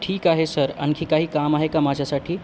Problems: constant background noise